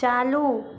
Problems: constant background noise